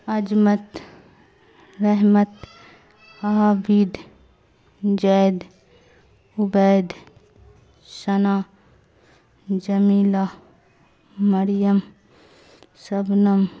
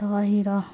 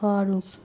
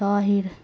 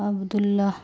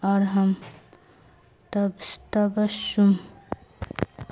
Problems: constant background noise